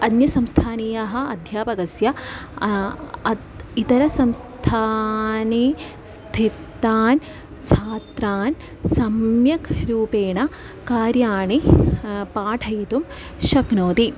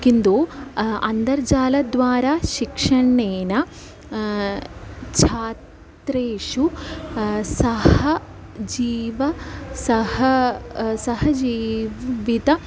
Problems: none marked